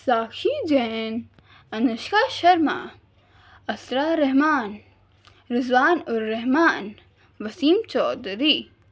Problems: none marked